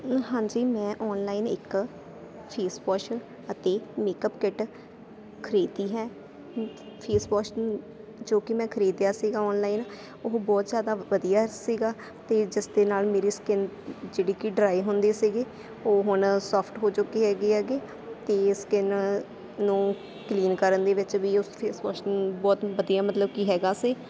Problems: constant background noise